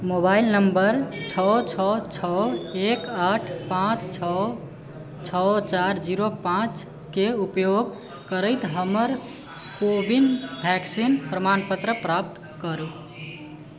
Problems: background sounds at intervals